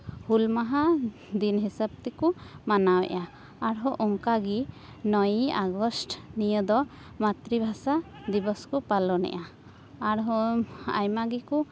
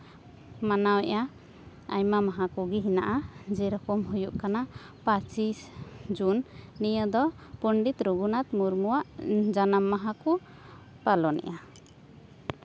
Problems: none marked